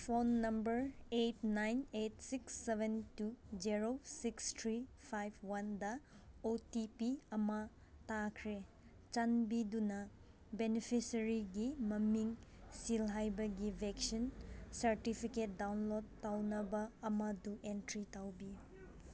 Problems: background sounds at intervals